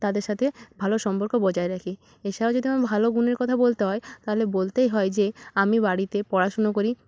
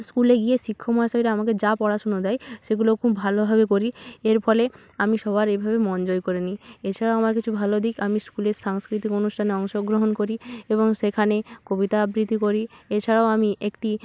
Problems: constant background noise